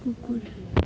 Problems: low volume